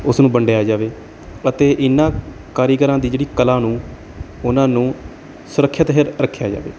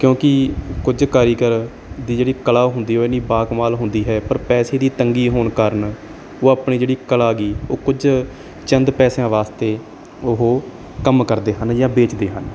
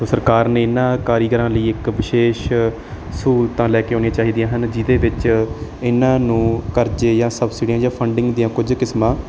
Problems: background sounds at intervals